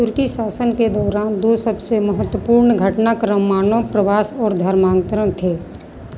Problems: constant background noise